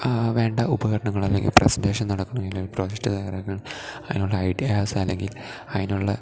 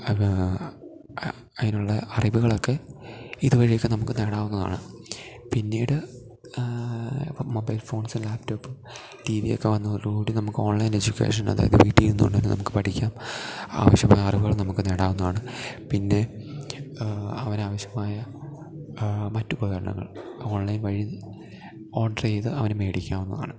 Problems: none marked